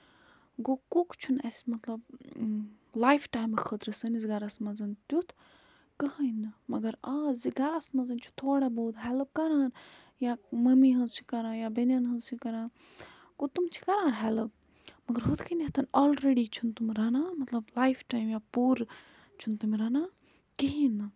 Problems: background sounds at intervals